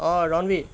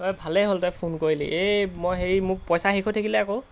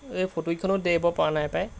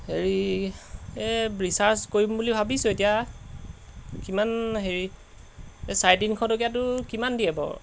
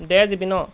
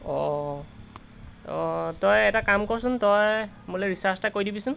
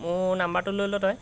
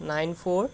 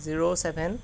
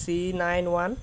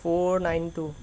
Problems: constant background noise